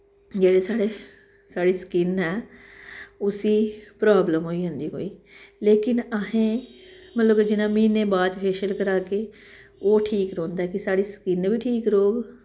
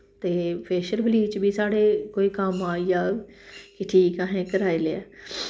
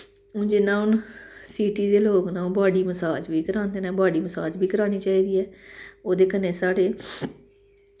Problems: background sounds at intervals, echo